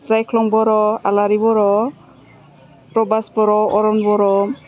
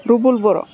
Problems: low volume